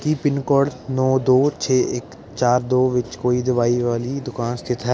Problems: none marked